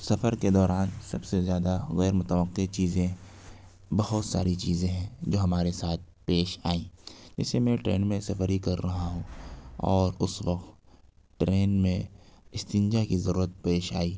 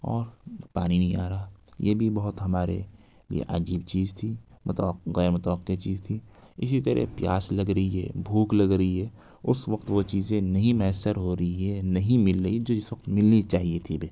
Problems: background sounds at intervals